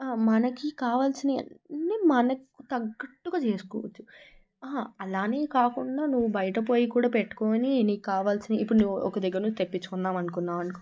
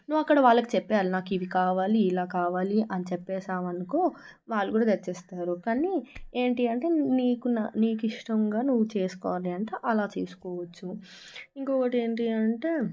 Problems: background sounds at intervals